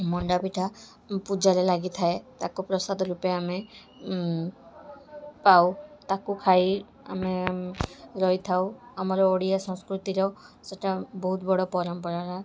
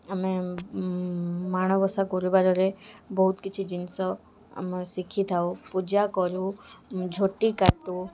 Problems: constant background noise, continuous background conversations